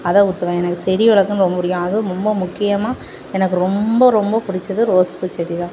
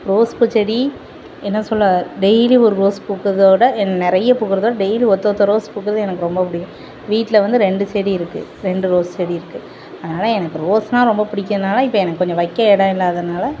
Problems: constant background noise